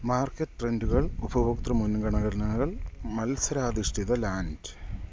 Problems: none marked